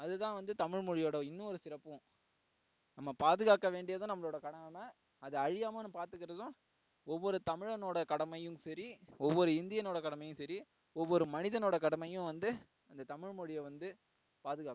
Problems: low volume